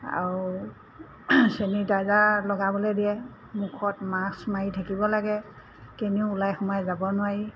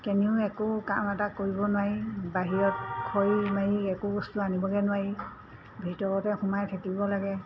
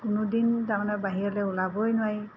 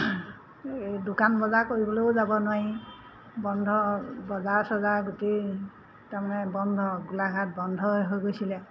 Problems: constant background noise